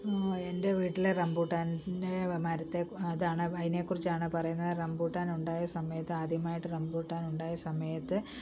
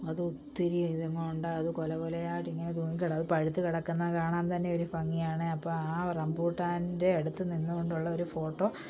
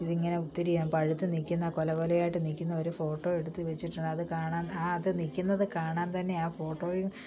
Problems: low volume